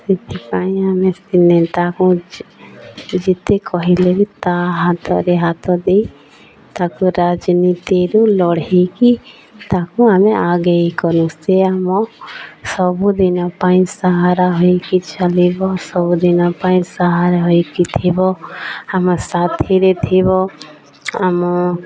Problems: none marked